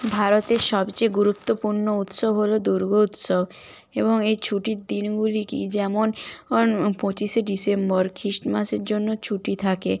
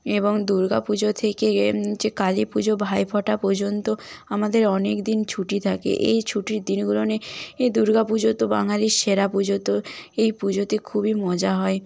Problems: none marked